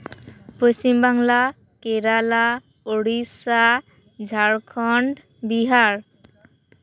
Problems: background sounds at intervals